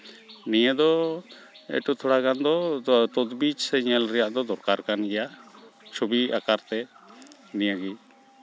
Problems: constant background noise